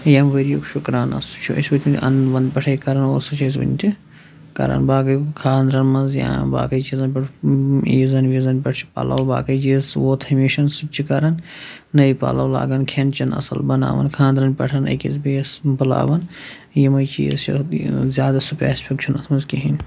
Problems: constant background noise